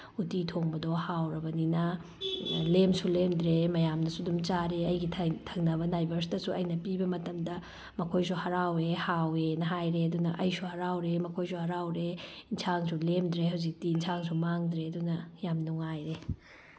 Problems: background sounds at intervals